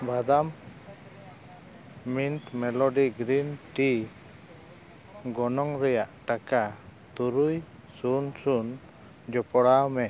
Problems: constant background noise, continuous background conversations